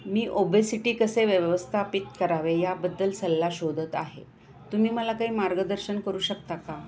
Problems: background sounds at intervals